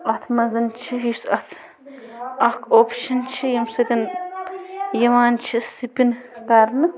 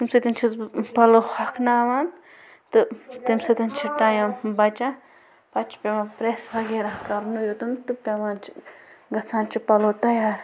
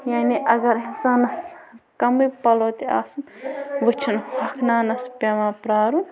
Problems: constant background noise, background conversations at intervals